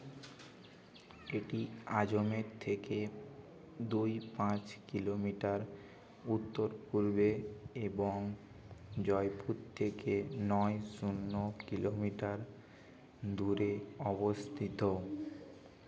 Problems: constant background noise, background conversations at intervals